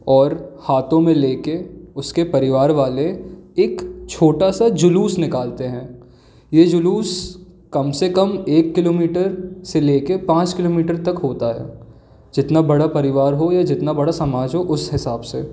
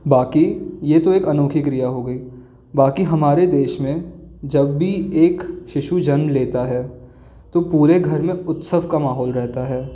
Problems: background sounds at intervals